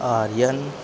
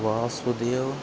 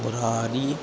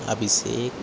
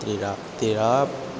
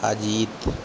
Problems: none marked